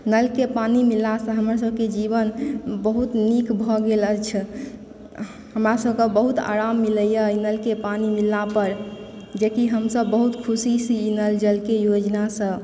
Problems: background sounds at intervals